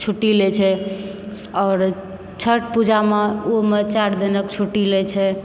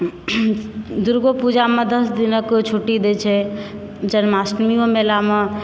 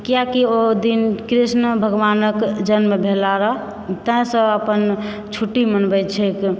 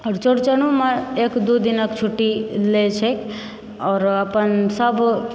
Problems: background sounds at intervals